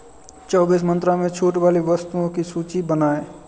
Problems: none marked